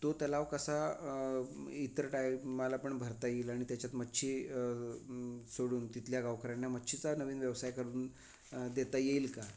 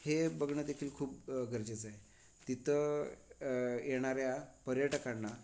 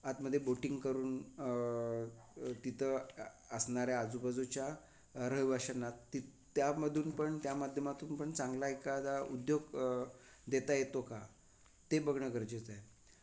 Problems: none marked